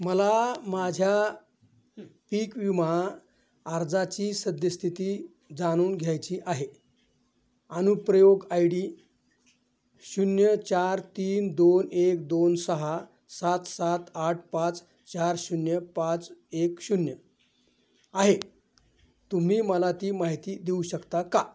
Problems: background sounds at intervals